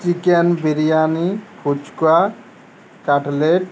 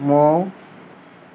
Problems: constant background noise